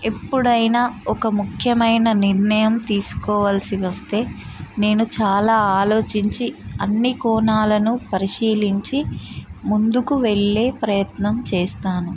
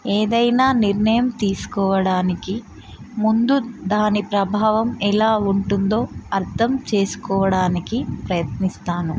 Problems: constant background noise